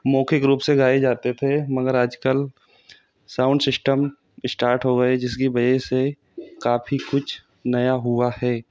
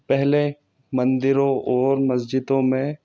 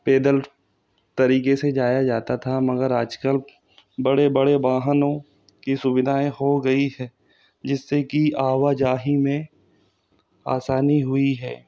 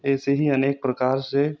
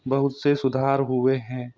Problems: constant background noise